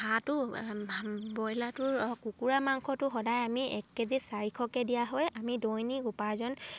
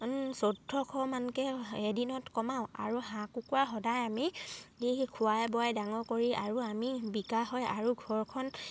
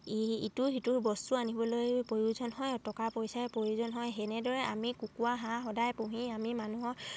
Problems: none marked